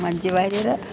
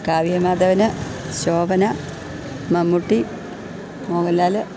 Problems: none marked